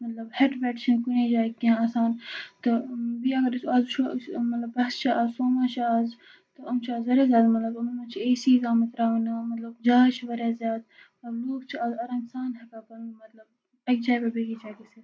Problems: background sounds at intervals